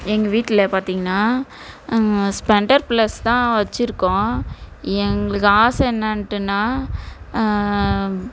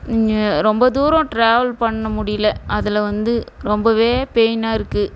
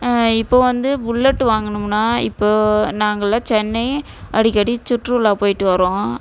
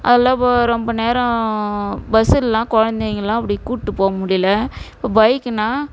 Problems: none marked